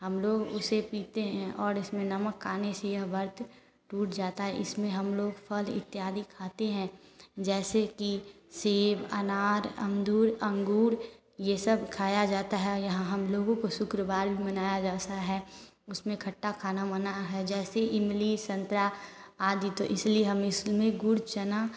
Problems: constant background noise